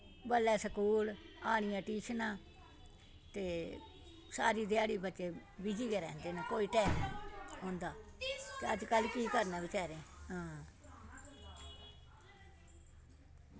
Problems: constant background noise